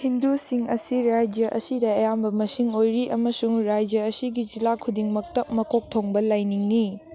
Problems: constant background noise